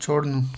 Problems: none marked